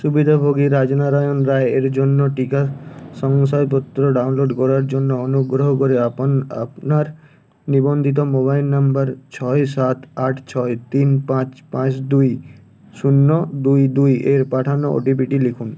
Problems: constant background noise